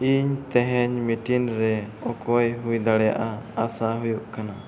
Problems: constant background noise, echo